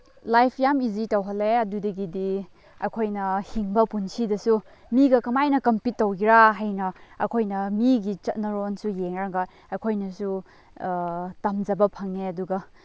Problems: none marked